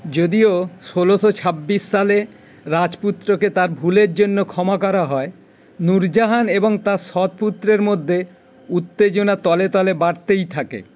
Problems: none marked